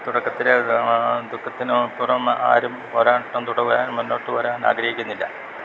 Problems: constant background noise